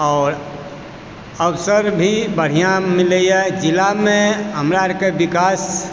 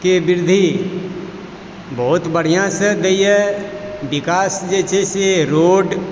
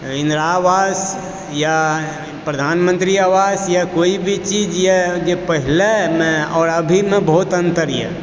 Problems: constant background noise